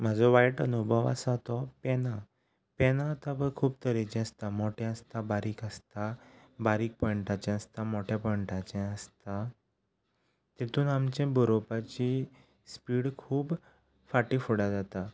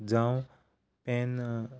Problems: none marked